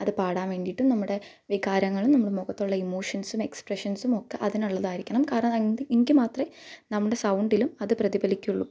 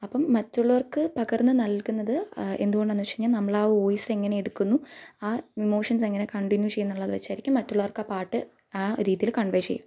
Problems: none marked